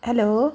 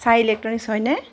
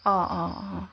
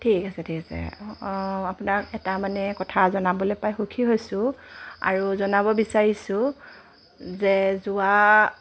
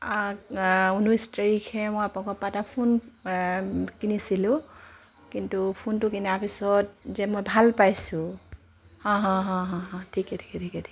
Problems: none marked